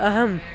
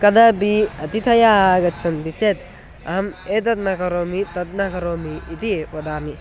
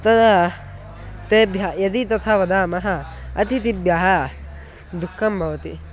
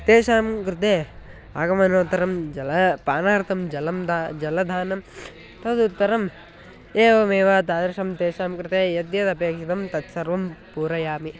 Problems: constant background noise